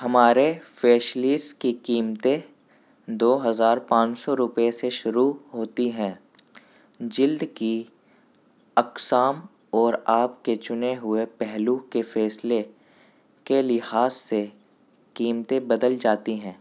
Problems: background sounds at intervals